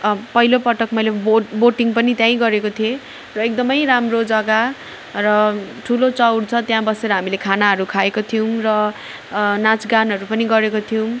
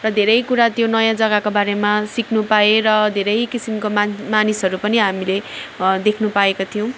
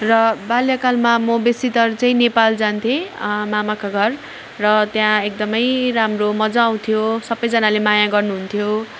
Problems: none marked